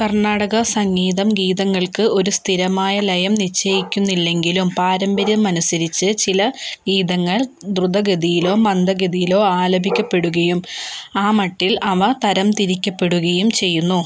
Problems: background sounds at intervals